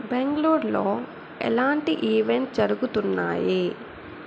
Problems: constant background noise